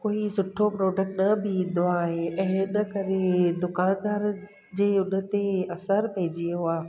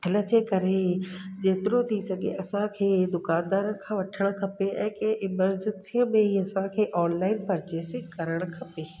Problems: constant background noise, echo